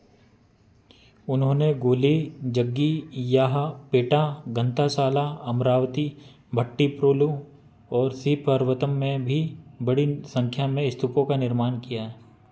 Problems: constant background noise